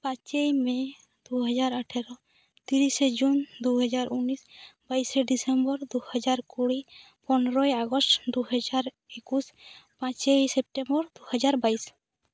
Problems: none marked